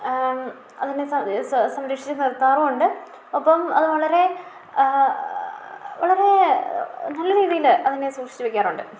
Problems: low volume